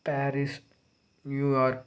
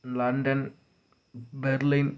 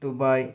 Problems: low volume